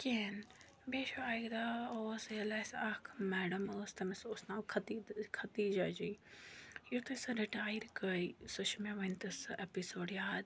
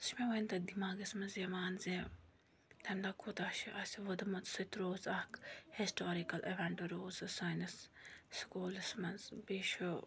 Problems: none marked